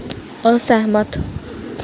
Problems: constant background noise